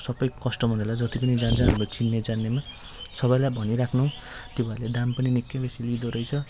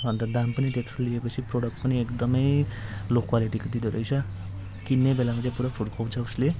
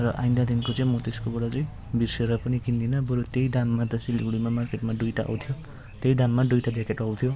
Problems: constant background noise